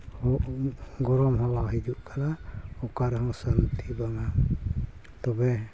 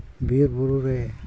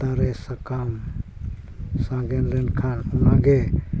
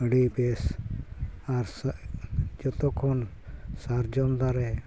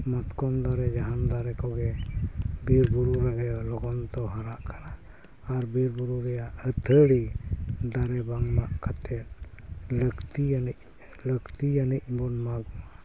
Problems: constant background noise, background conversations at intervals